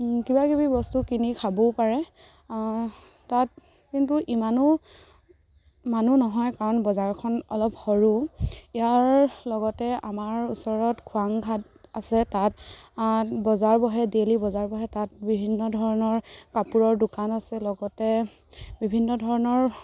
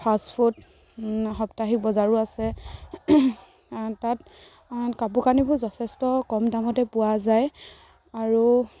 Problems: constant background noise